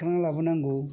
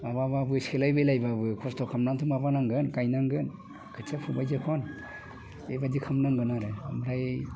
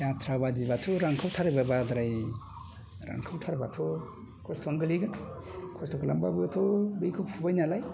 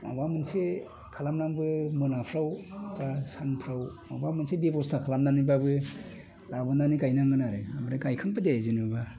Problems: constant background noise